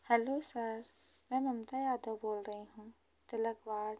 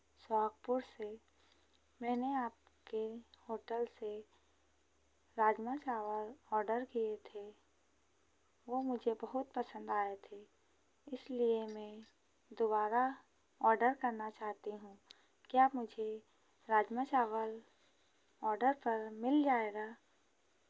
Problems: constant background noise